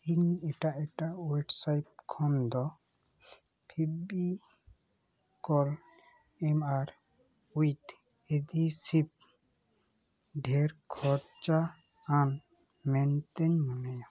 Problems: background sounds at intervals